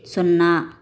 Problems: none marked